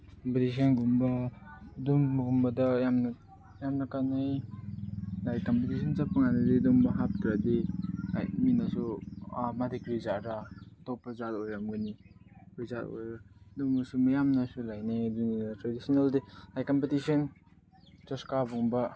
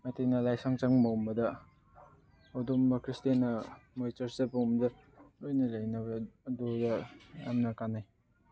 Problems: background sounds at intervals